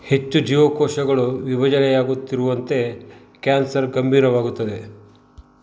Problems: constant background noise